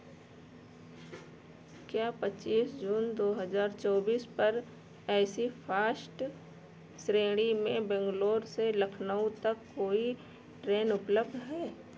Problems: none marked